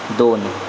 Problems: constant background noise